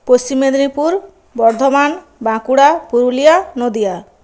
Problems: none marked